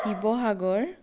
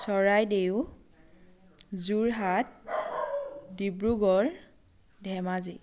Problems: constant background noise